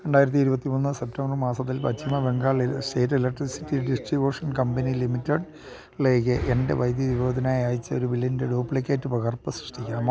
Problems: none marked